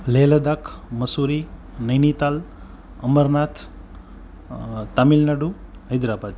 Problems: constant background noise